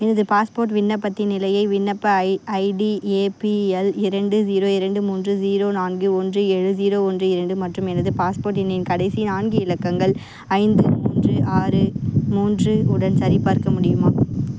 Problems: constant background noise